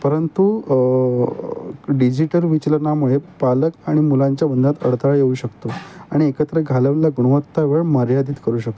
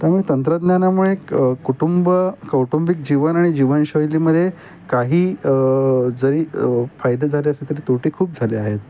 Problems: none marked